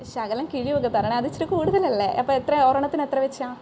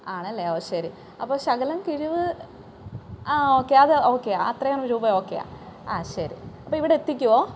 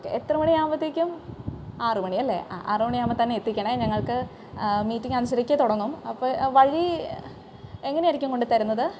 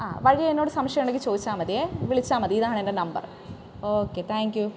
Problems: none marked